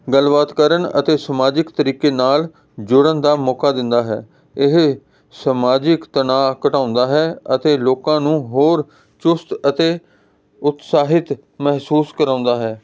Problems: constant background noise